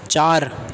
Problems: constant background noise